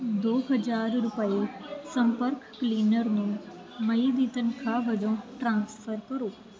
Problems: background sounds at intervals